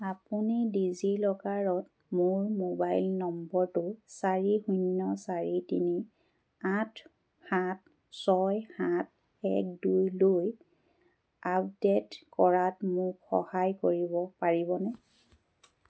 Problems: none marked